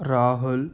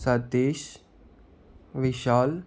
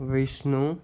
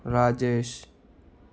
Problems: none marked